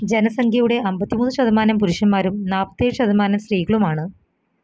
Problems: background sounds at intervals